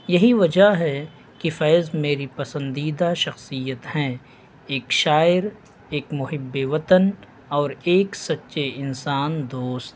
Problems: constant background noise